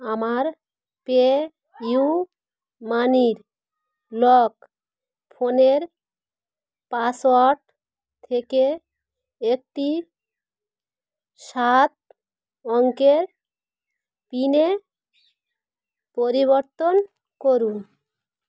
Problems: none marked